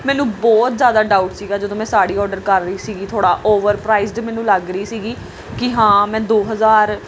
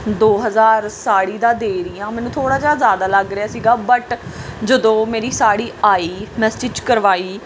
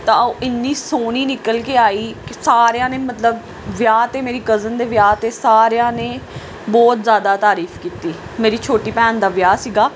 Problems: background sounds at intervals